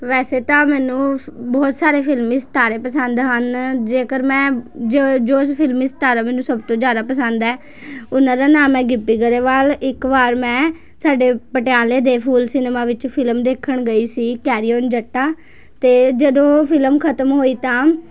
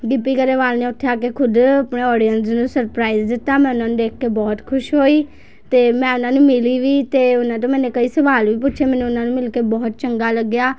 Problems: background sounds at intervals, continuous background conversations